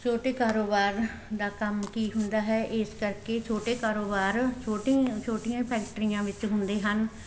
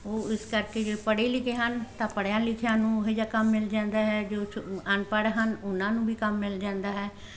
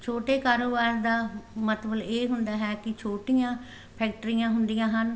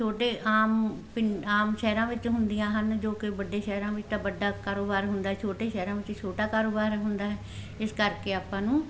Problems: constant background noise